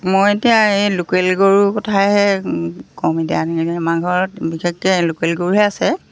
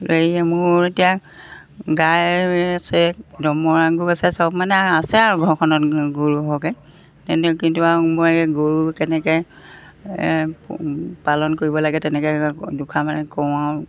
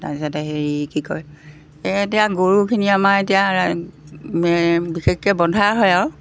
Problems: background sounds at intervals